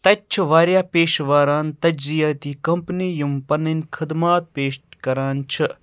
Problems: none marked